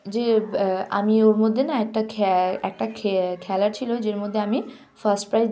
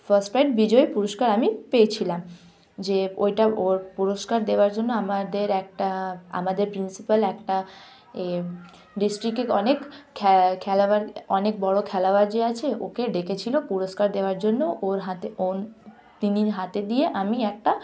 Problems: background sounds at intervals, continuous background conversations